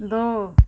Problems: none marked